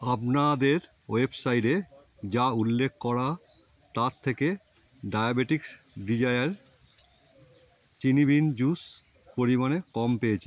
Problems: constant background noise